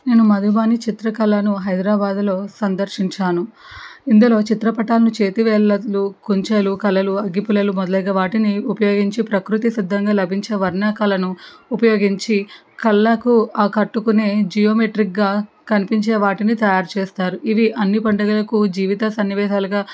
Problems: background sounds at intervals